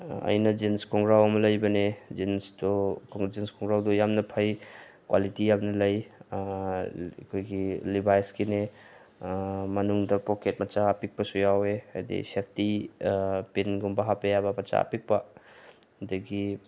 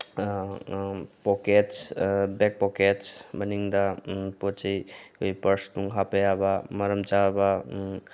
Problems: background sounds at intervals